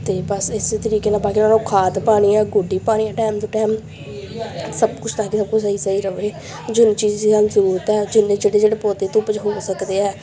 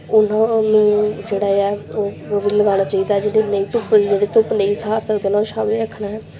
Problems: none marked